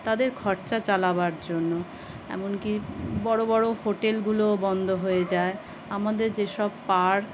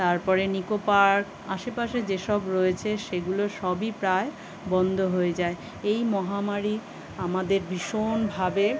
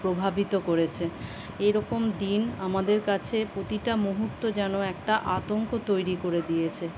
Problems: constant background noise